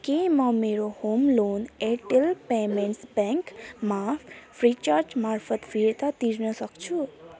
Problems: background conversations at intervals